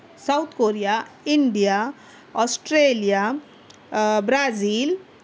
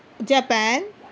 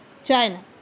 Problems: none marked